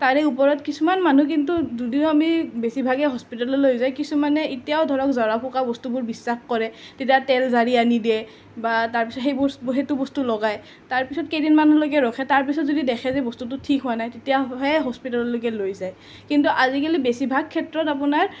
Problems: none marked